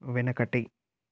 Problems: none marked